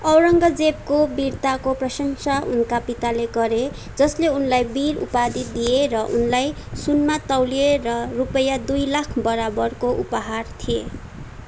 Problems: background sounds at intervals